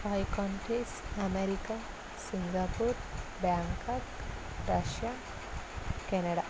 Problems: constant background noise, low volume